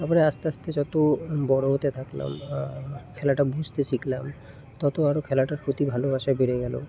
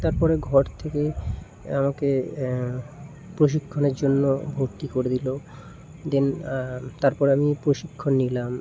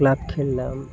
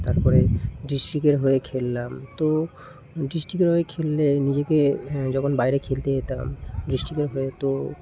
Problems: none marked